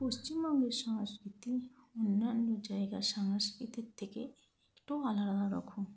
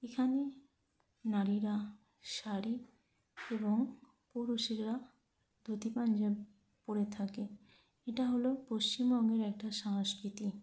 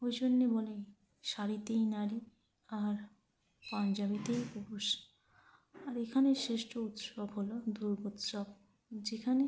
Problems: constant background noise